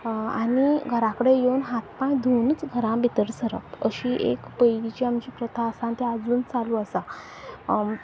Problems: background sounds at intervals